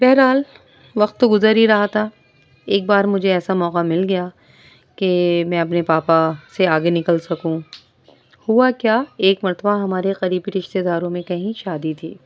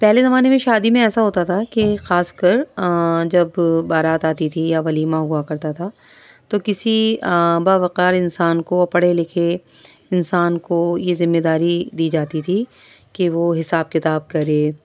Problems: background sounds at intervals